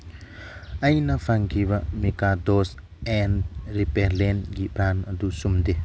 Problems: background sounds at intervals